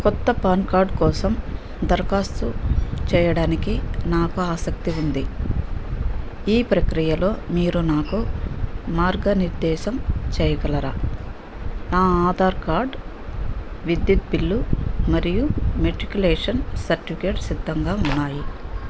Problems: none marked